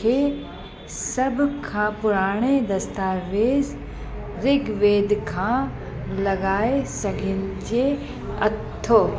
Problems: constant background noise, echo